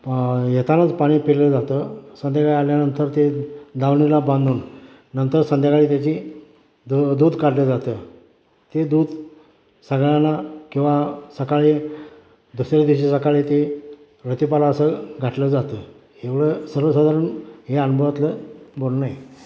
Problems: constant background noise